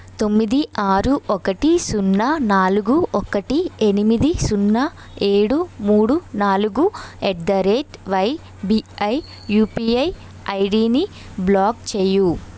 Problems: constant background noise